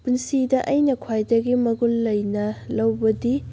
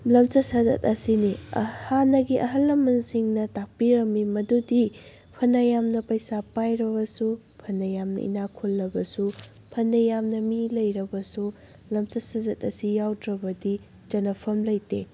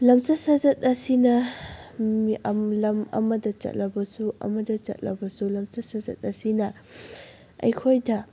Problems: none marked